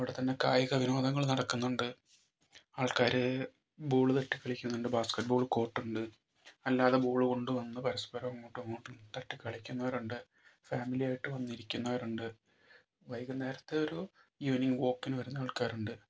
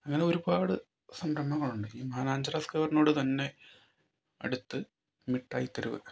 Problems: low volume